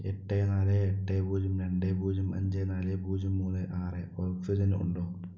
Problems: low volume